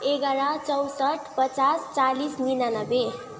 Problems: background conversations at intervals